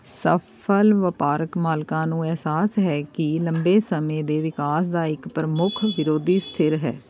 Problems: constant background noise